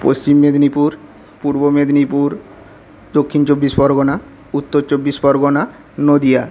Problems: constant background noise